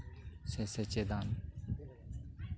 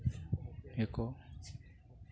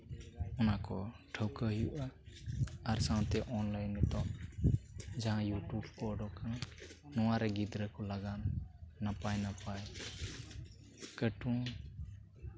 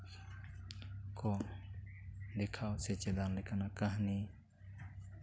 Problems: background sounds at intervals, continuous background conversations